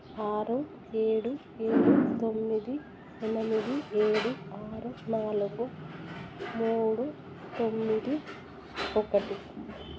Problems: constant background noise, background conversations at intervals, low volume